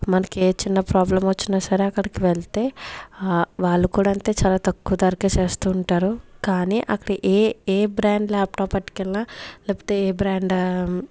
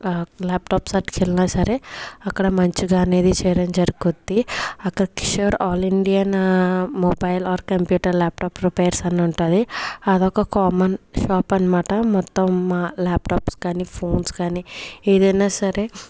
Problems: none marked